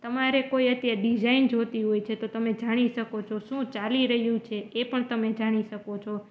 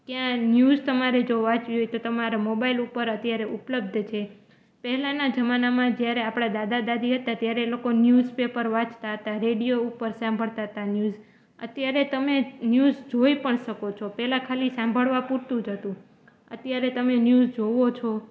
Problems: background sounds at intervals